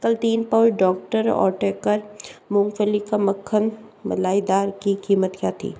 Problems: none marked